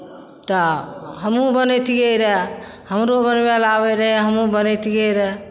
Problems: none marked